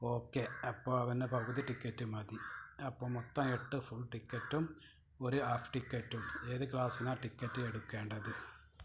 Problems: background sounds at intervals